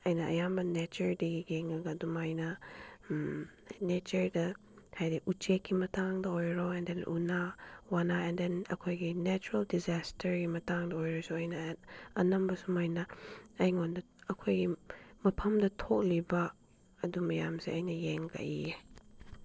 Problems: none marked